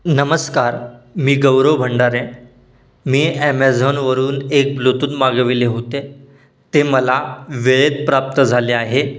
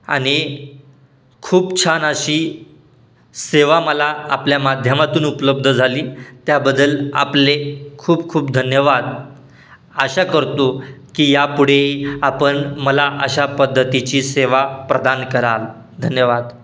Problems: background sounds at intervals